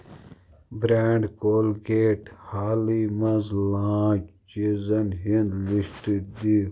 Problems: none marked